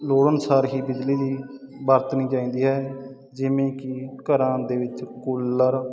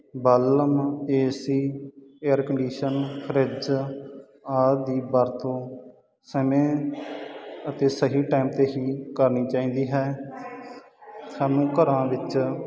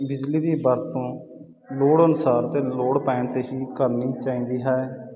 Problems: constant background noise